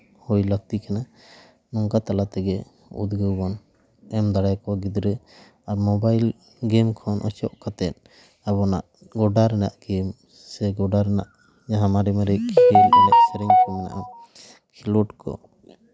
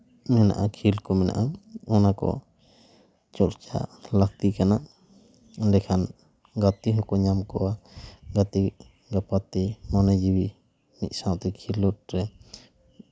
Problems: background sounds at intervals